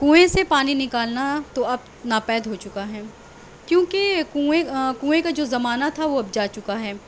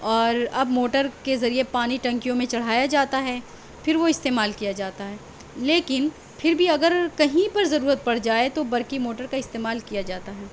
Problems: constant background noise